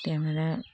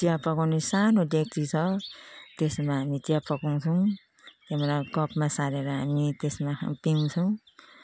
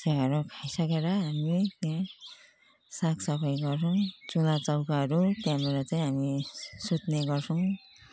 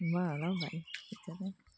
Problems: continuous background conversations